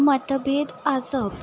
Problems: constant background noise